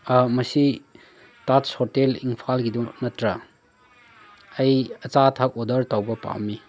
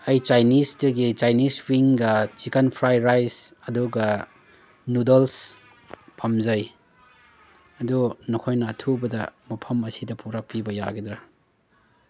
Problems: background sounds at intervals